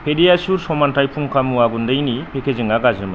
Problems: constant background noise